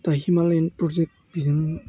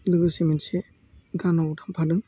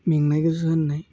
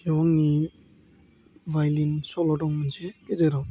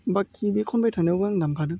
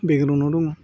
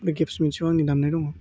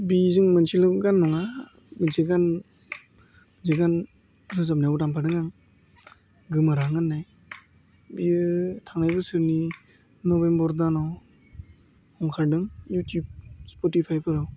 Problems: constant background noise